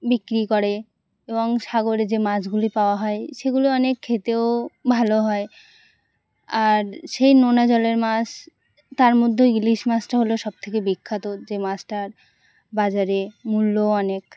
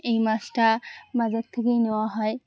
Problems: constant background noise